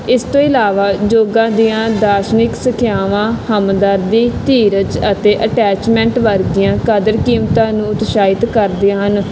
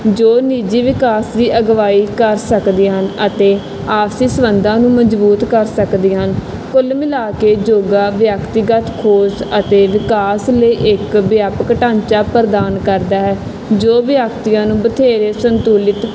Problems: constant background noise